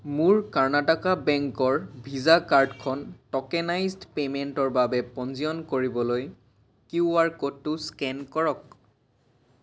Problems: none marked